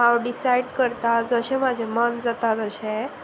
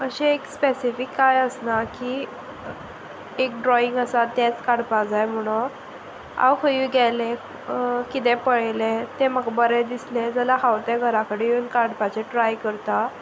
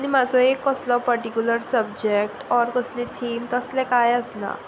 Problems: constant background noise